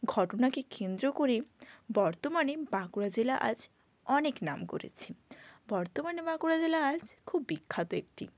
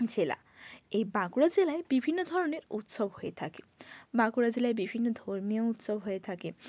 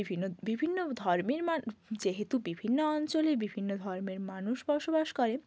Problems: constant background noise